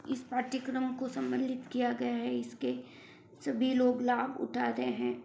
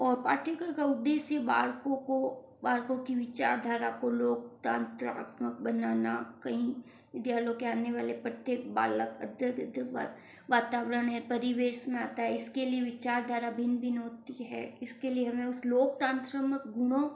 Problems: low volume